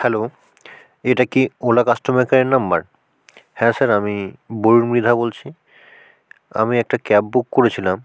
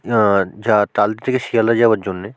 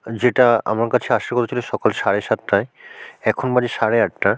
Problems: background sounds at intervals